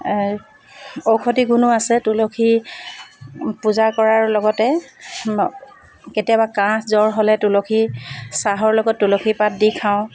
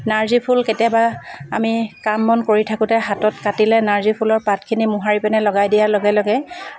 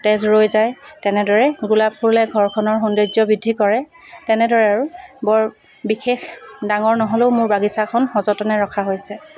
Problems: background sounds at intervals